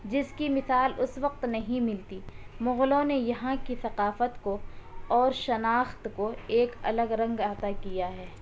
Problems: none marked